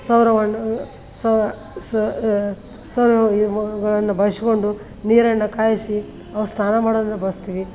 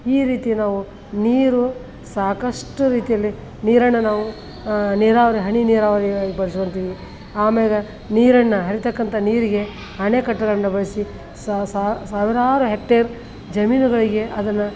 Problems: background sounds at intervals